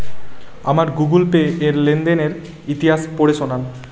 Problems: none marked